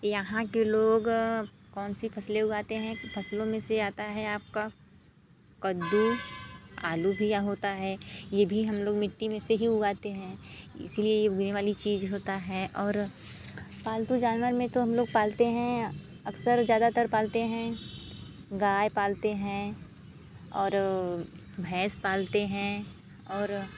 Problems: constant background noise